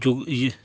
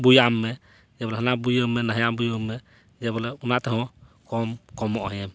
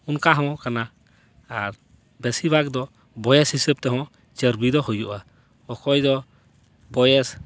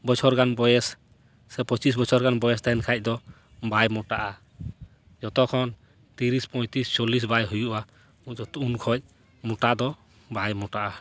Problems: background sounds at intervals